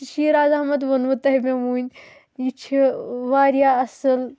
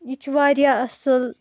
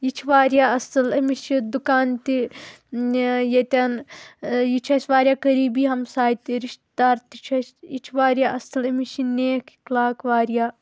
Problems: constant background noise